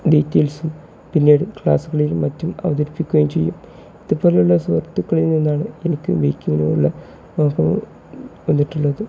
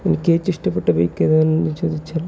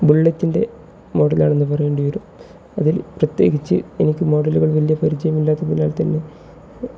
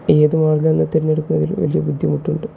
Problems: background sounds at intervals, low volume